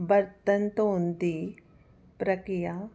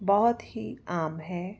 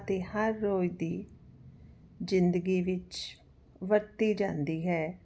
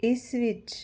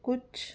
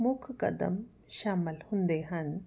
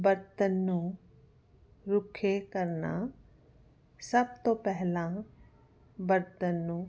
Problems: none marked